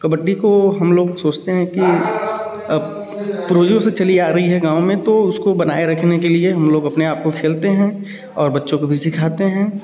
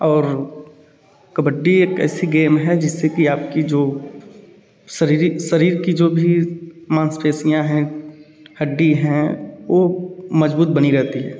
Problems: none marked